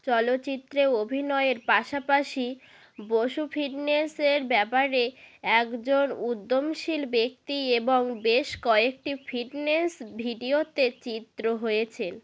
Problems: background sounds at intervals